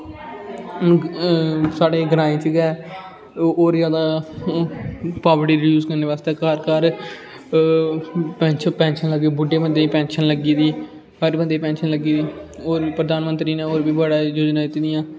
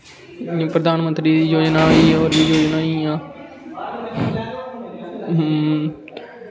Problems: constant background noise